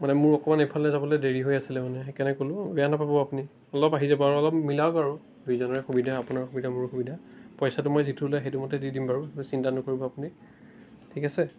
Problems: constant background noise